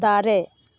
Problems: constant background noise